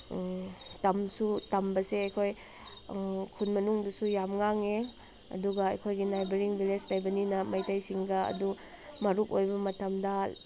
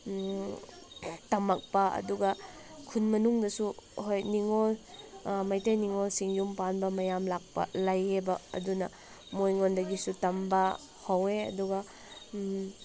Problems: constant background noise